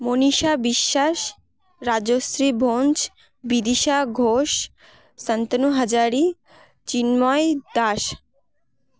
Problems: continuous background conversations